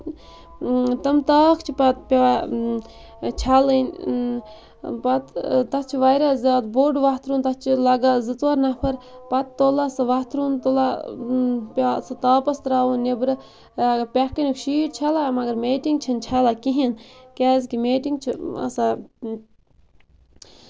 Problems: background sounds at intervals